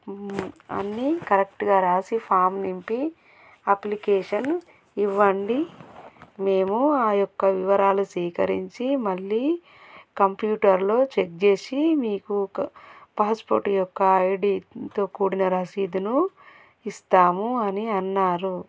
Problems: none marked